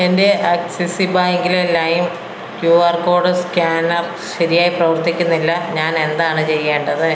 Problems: constant background noise